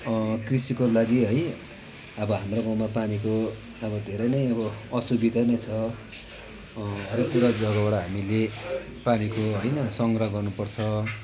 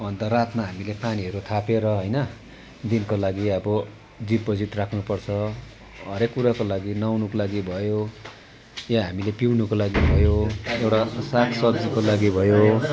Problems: none marked